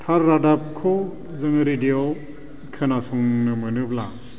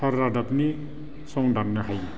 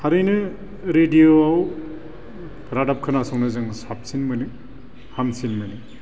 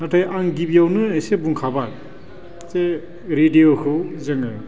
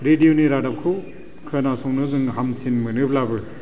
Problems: constant background noise